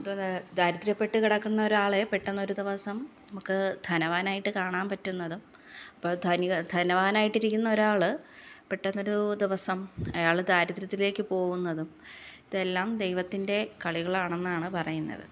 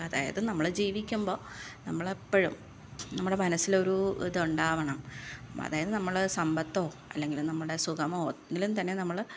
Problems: low volume